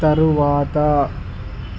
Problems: constant background noise